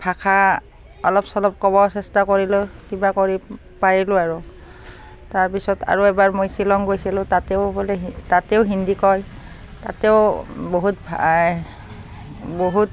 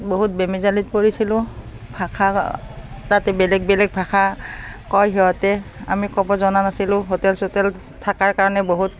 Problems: constant background noise